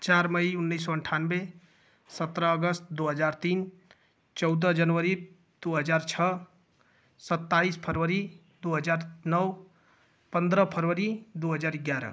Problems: constant background noise